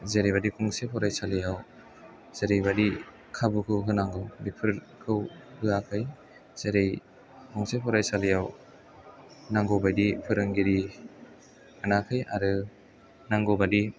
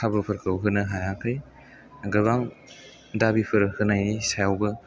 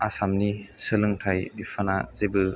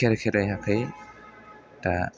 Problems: low volume